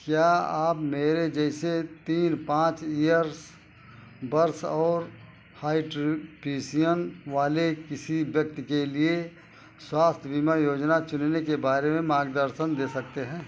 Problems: constant background noise